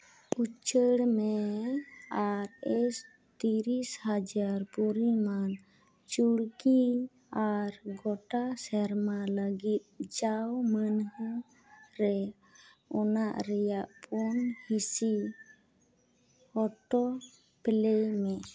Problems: none marked